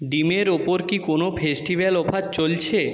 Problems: echo